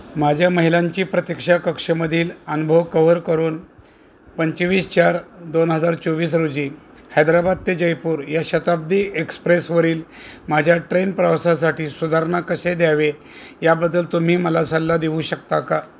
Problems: none marked